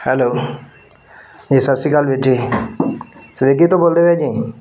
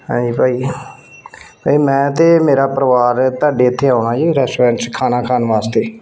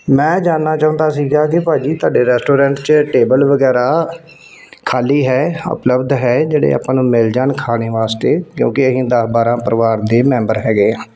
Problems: constant background noise